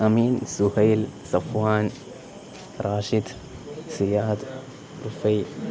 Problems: constant background noise